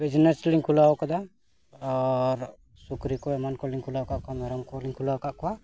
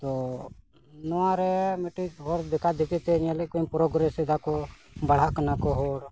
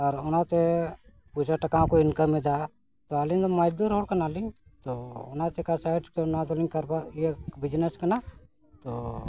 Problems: constant background noise, background conversations at intervals